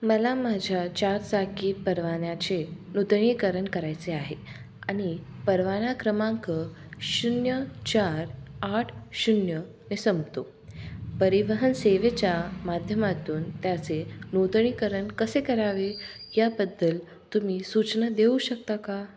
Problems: background sounds at intervals